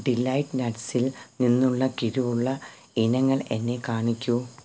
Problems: background sounds at intervals